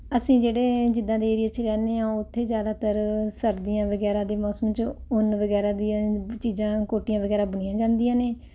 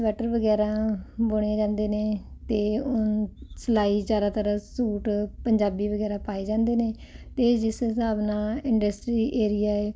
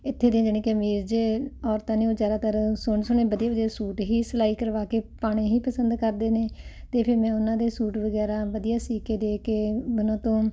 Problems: constant background noise